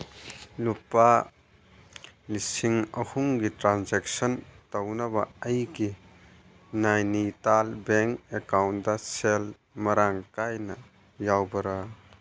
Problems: none marked